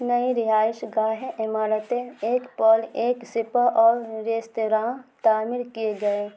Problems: constant background noise